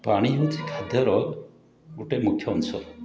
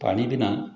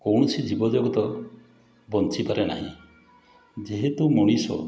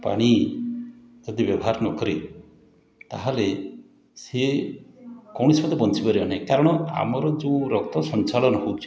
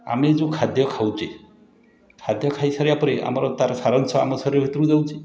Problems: background sounds at intervals, continuous background conversations